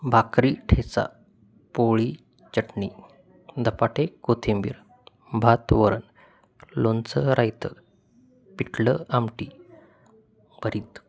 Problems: constant background noise